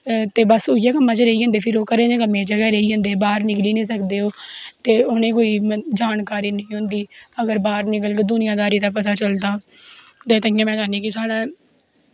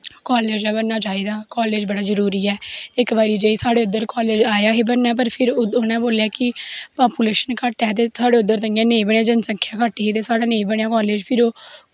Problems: background sounds at intervals